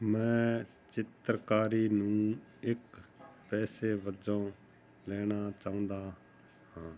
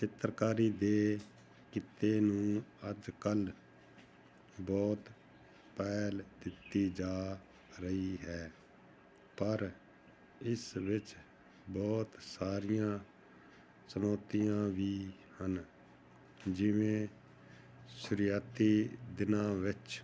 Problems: none marked